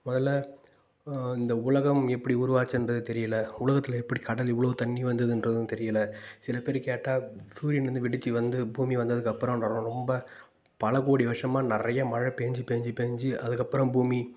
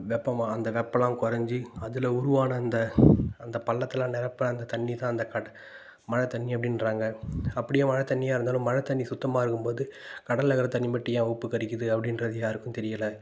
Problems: none marked